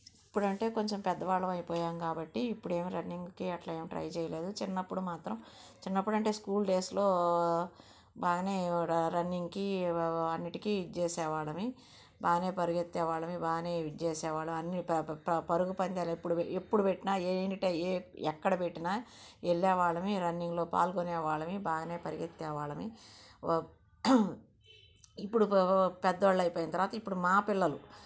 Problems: background sounds at intervals